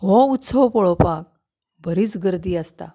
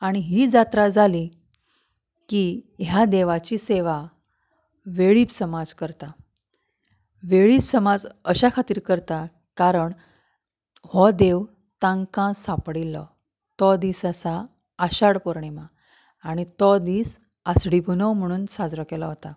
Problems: background sounds at intervals